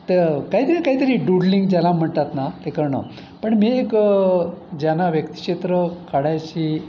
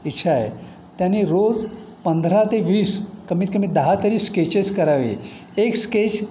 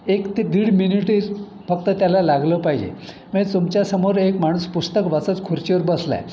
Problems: none marked